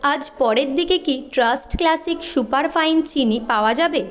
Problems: continuous background conversations